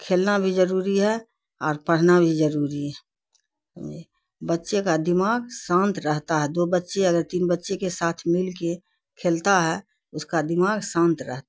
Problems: none marked